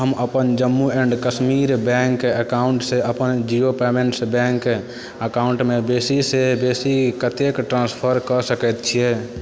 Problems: constant background noise